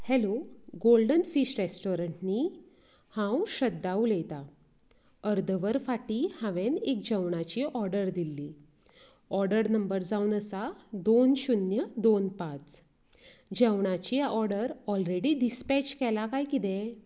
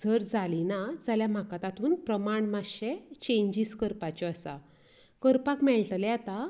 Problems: background conversations at intervals